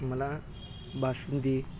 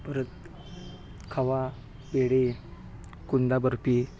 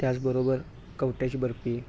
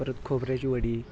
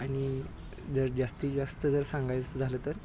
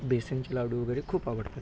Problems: none marked